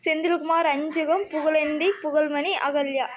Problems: background sounds at intervals